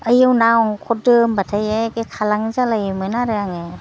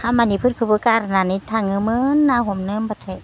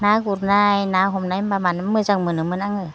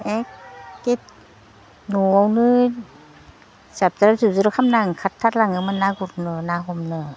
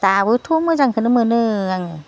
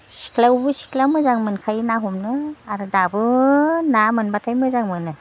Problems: none marked